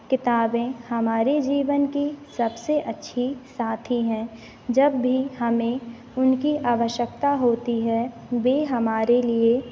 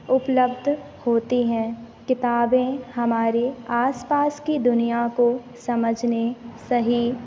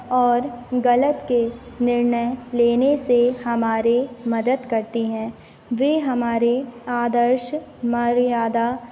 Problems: constant background noise